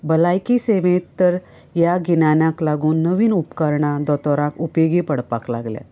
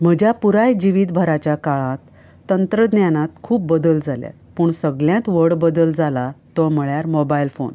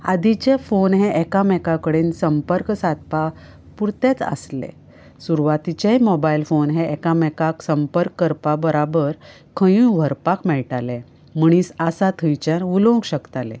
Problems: none marked